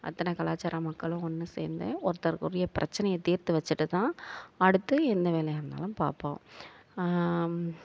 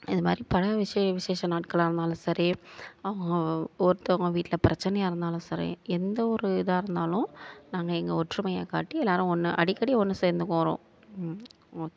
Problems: none marked